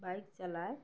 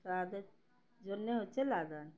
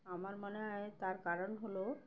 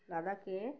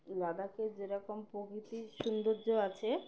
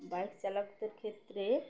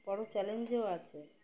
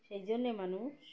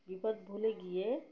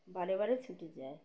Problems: none marked